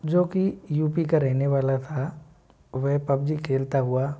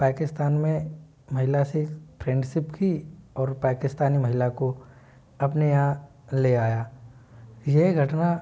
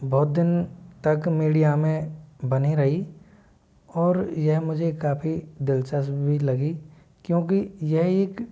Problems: none marked